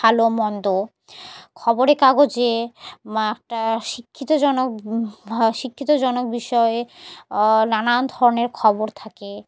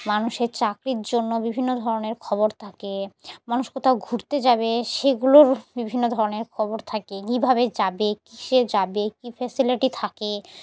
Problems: background sounds at intervals